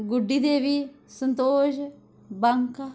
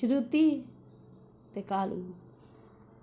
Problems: none marked